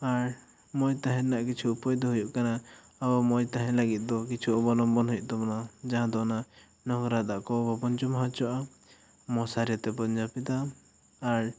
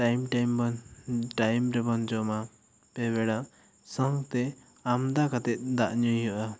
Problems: none marked